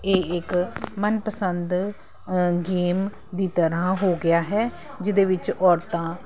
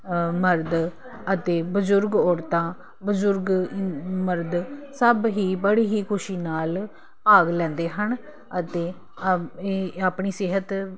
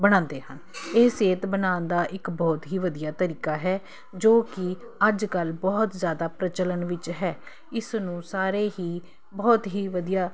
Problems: constant background noise